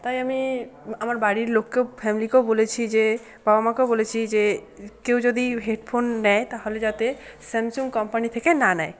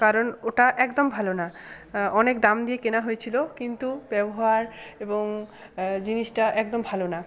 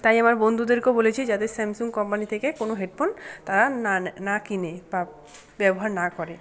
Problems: constant background noise, continuous background conversations